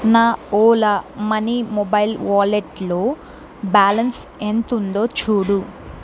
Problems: constant background noise